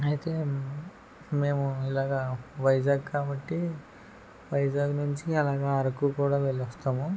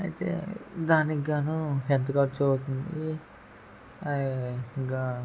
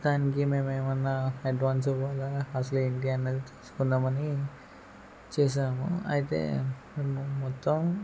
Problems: background conversations at intervals